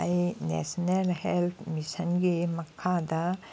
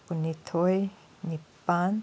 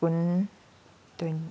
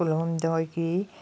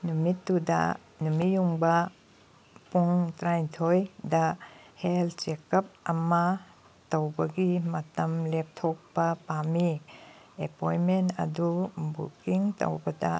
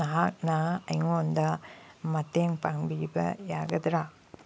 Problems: background sounds at intervals